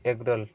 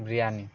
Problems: none marked